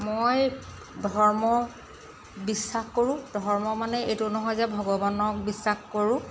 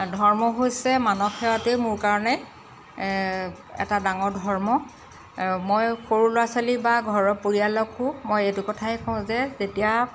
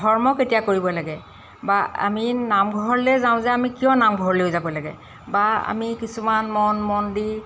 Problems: constant background noise